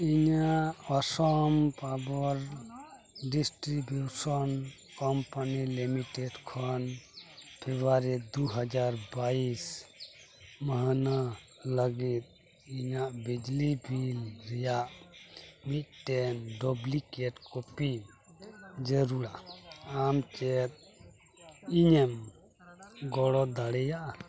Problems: constant background noise, continuous background conversations